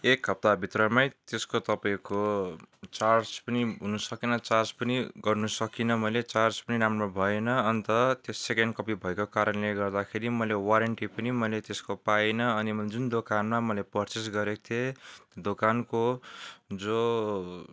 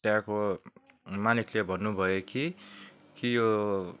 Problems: none marked